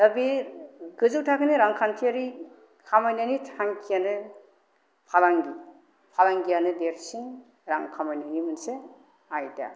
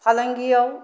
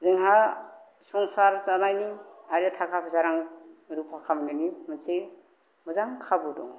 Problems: none marked